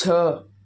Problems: none marked